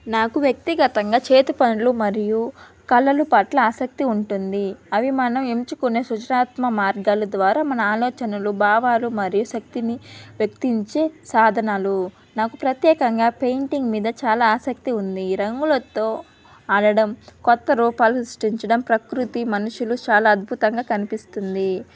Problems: none marked